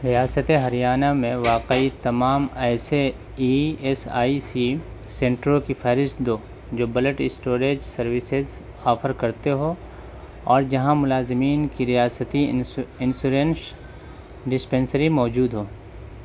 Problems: none marked